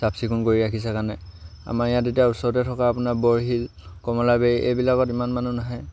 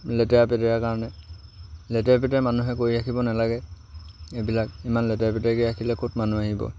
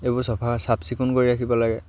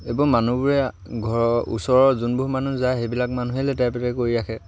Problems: none marked